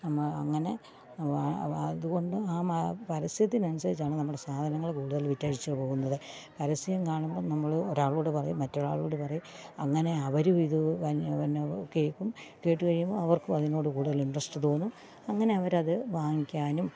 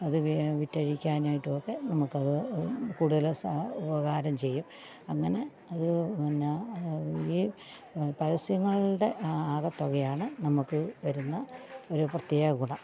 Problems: constant background noise